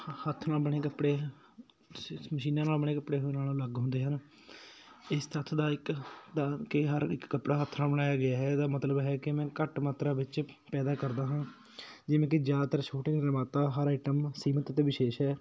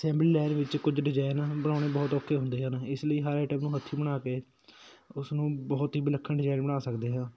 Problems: background sounds at intervals